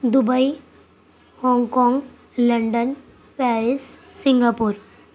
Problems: constant background noise